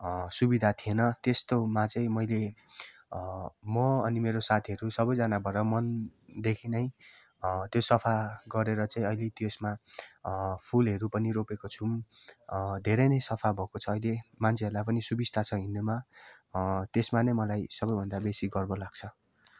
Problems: background sounds at intervals